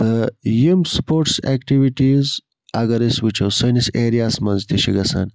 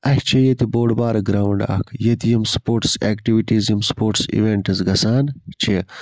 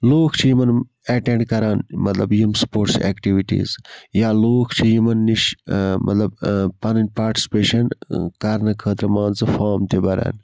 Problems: constant background noise